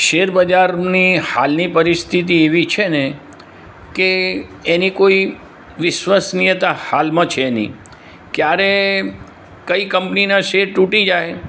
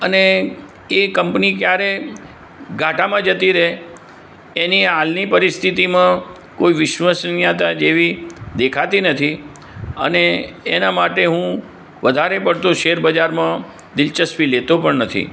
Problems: none marked